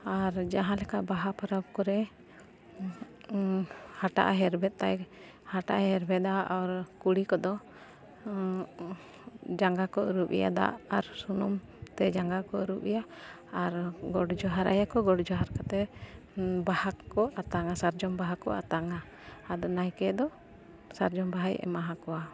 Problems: constant background noise, background conversations at intervals